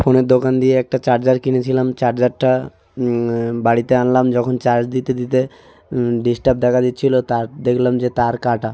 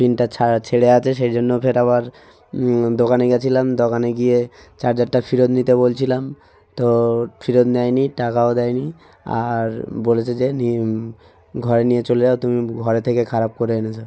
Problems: constant background noise, background conversations at intervals